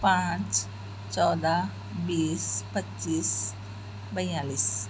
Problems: constant background noise